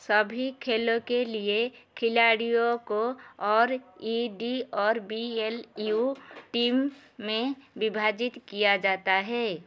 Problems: constant background noise